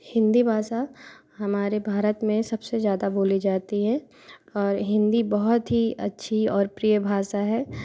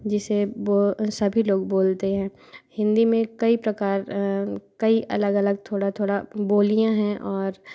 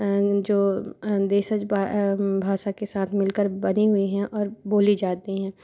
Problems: constant background noise